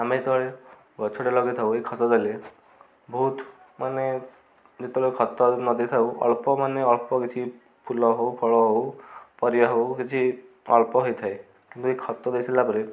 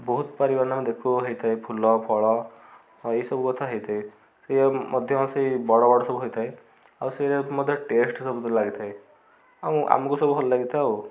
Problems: constant background noise, continuous background conversations